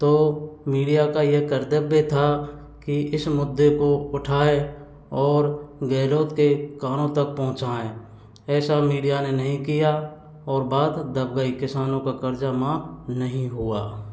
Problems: background sounds at intervals